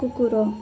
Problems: background sounds at intervals